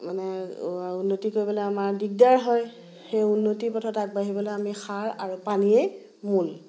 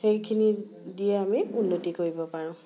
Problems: background conversations at intervals